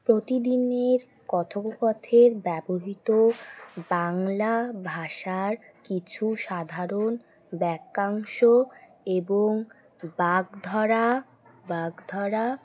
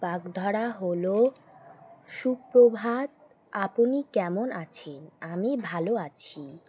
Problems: constant background noise